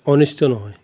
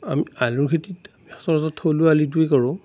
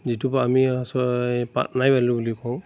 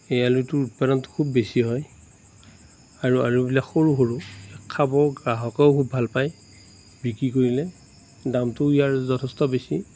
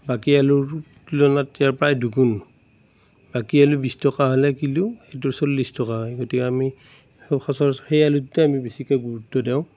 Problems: constant background noise